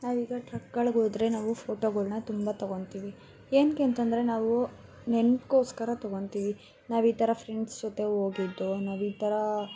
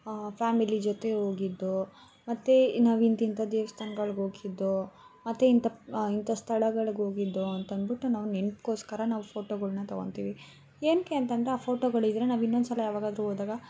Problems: background sounds at intervals